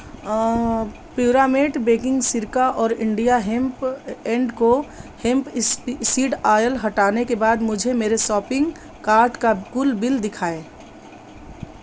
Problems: none marked